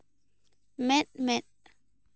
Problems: none marked